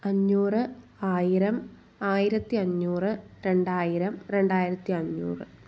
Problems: none marked